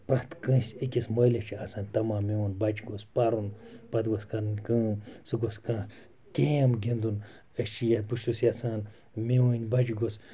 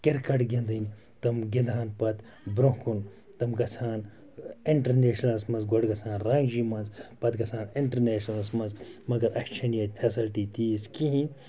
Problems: background sounds at intervals